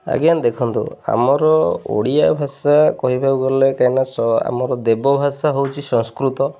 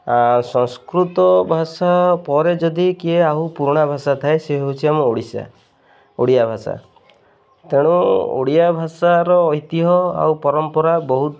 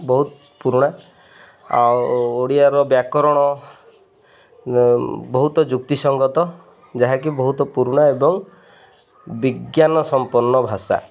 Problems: constant background noise